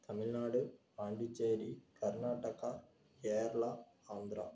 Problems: none marked